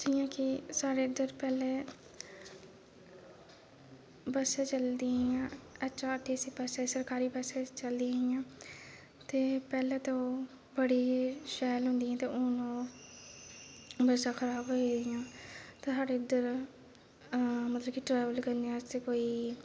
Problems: constant background noise, low volume